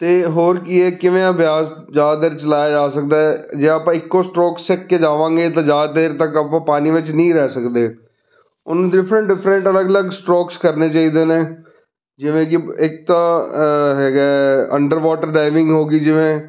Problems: background conversations at intervals